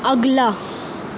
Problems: constant background noise